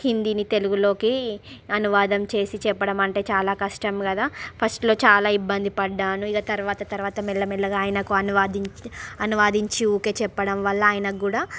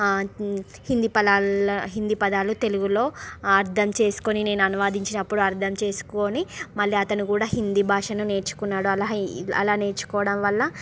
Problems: background sounds at intervals, background conversations at intervals